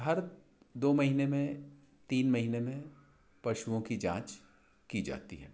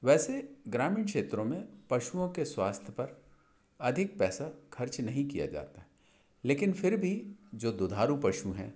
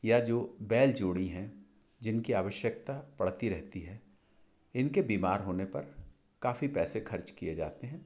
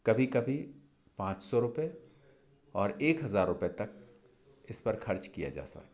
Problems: none marked